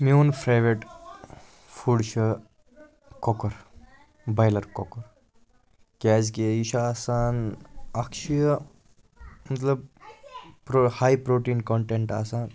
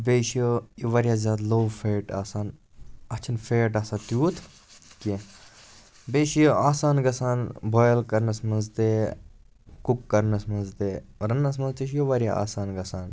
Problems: background sounds at intervals, background conversations at intervals